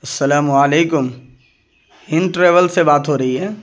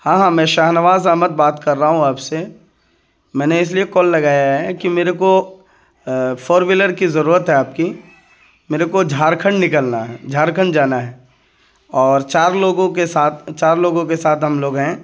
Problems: none marked